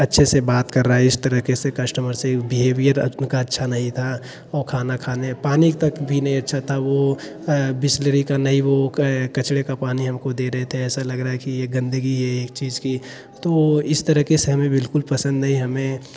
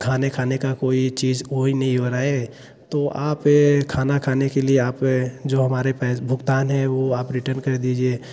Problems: background sounds at intervals